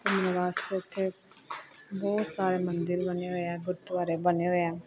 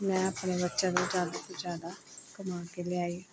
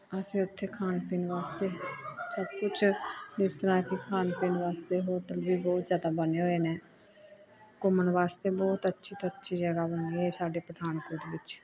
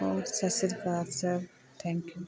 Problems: continuous background conversations